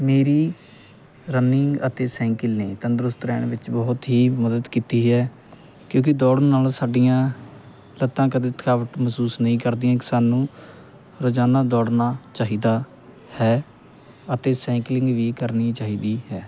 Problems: constant background noise